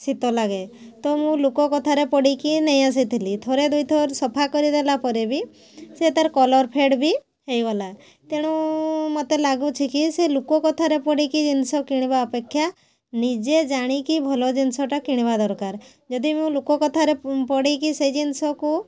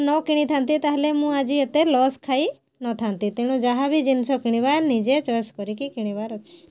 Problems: constant background noise